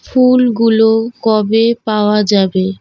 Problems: none marked